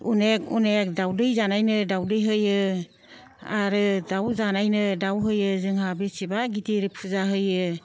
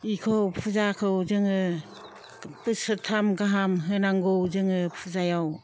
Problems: none marked